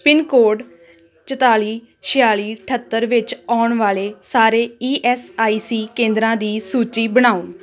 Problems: continuous background conversations